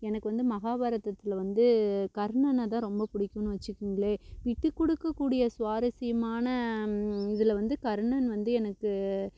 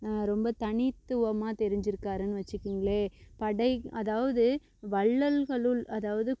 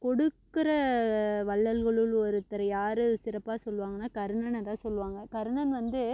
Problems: constant background noise